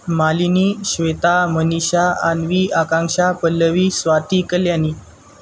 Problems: constant background noise